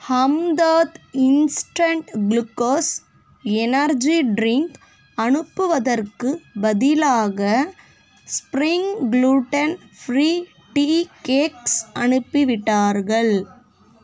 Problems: constant background noise